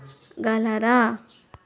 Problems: background sounds at intervals, background conversations at intervals